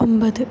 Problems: constant background noise